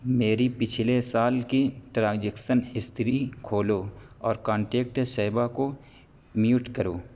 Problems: constant background noise